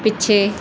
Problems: none marked